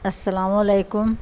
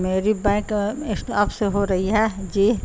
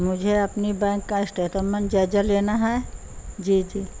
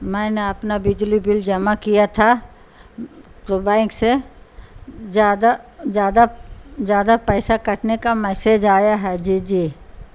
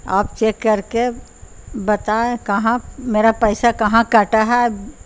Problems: constant background noise